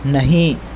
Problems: constant background noise